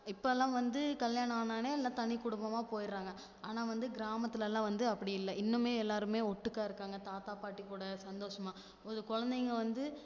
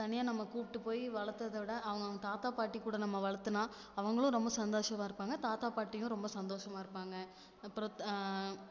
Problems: none marked